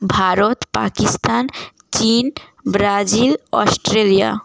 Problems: background sounds at intervals